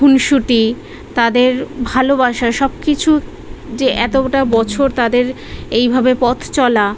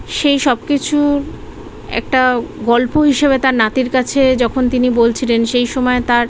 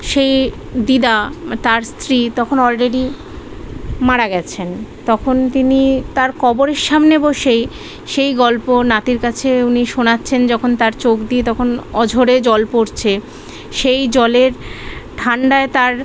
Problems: background conversations at intervals